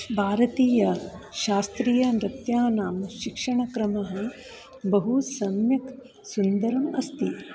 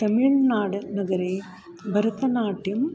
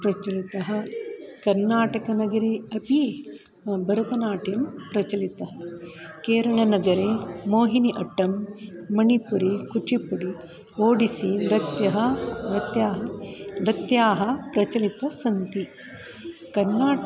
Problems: none marked